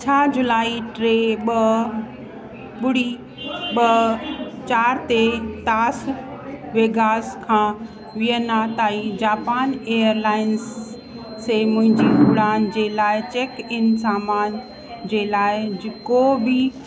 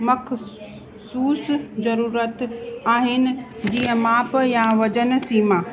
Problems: constant background noise, echo